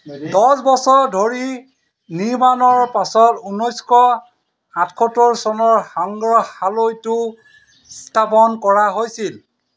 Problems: none marked